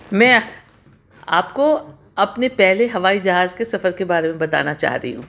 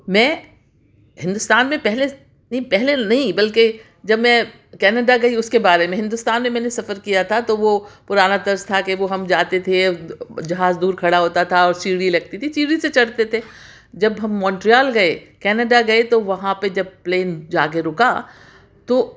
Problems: background sounds at intervals